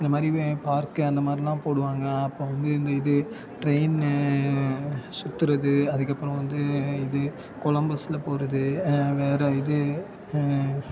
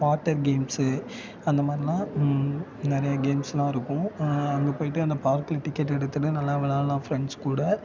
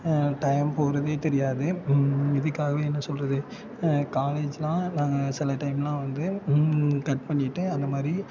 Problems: constant background noise, continuous background conversations